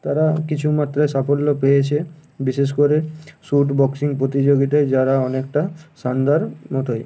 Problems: constant background noise